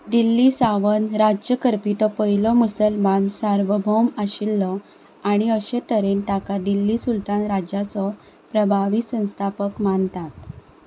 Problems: background sounds at intervals